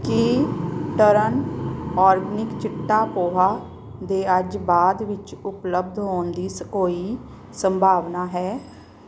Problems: background sounds at intervals